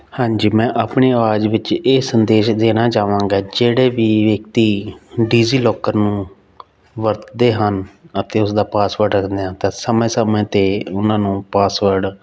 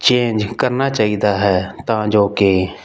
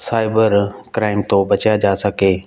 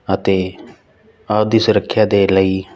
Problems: background sounds at intervals